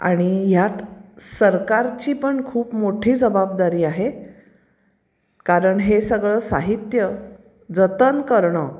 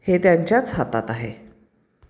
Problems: background sounds at intervals